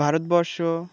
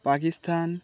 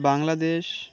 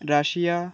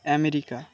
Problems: background conversations at intervals